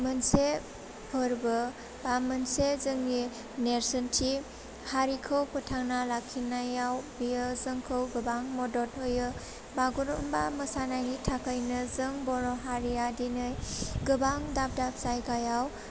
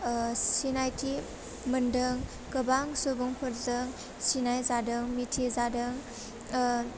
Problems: low volume